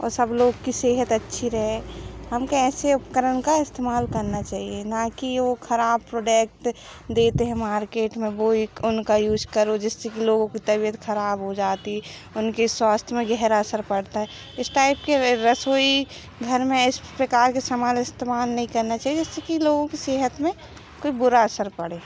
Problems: background sounds at intervals